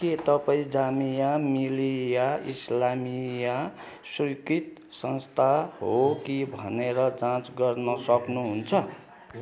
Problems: continuous background conversations